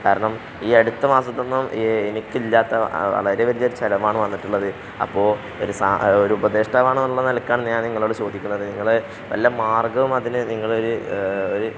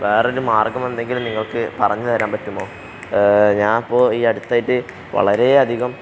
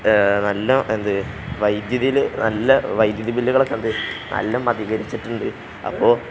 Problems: none marked